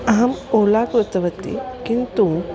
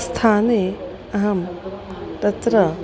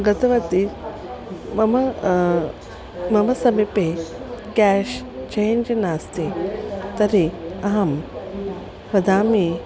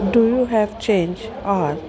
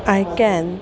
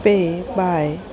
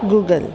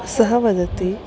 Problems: constant background noise, continuous background conversations